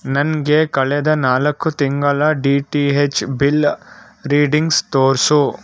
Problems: background sounds at intervals